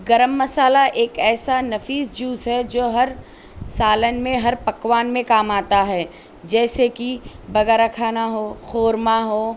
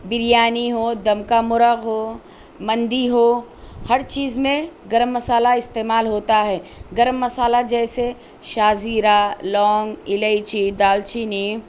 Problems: none marked